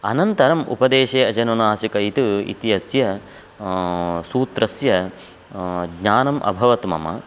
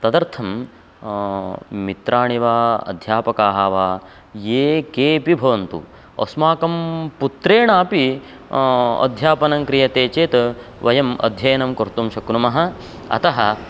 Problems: constant background noise